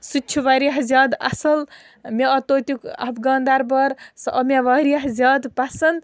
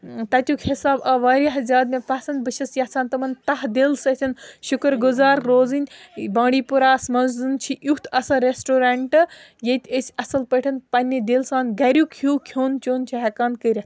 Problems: continuous background conversations